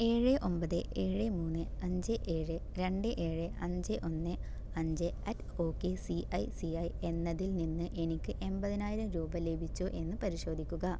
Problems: low volume